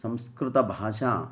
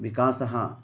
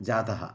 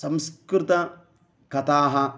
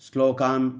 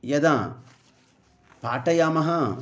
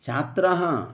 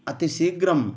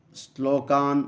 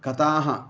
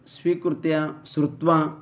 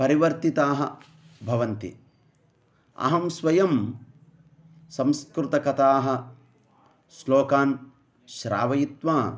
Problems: none marked